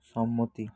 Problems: none marked